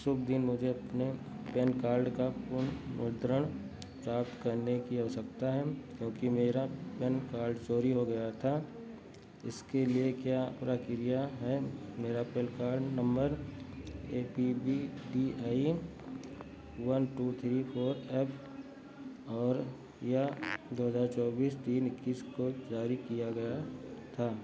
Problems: none marked